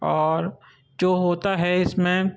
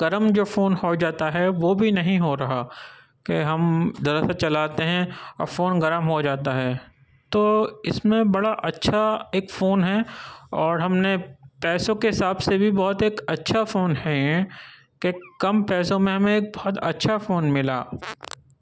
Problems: none marked